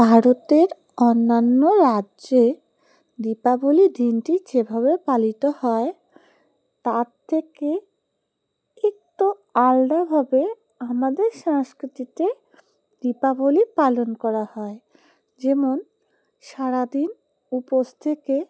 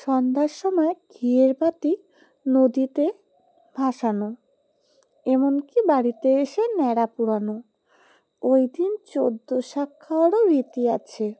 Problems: constant background noise